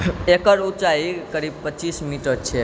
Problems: constant background noise